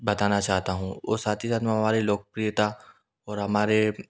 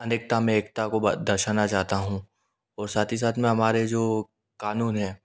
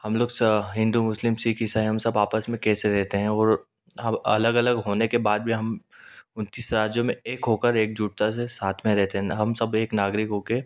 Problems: none marked